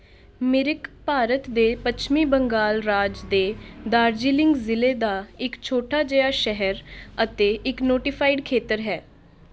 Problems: constant background noise